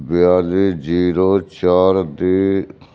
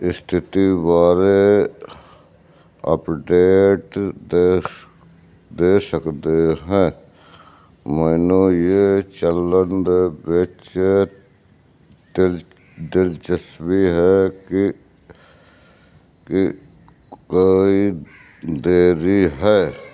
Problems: background conversations at intervals